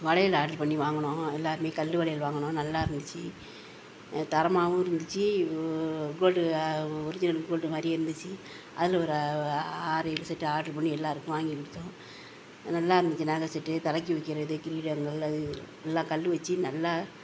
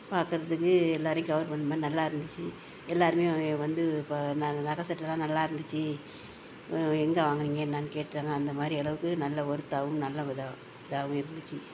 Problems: none marked